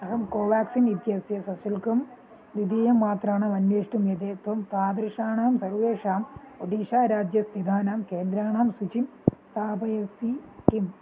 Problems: constant background noise, low volume